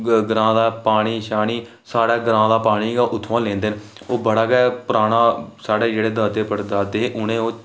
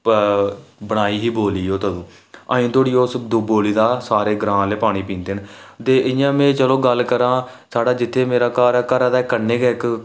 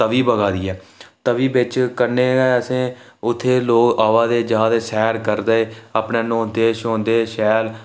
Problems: none marked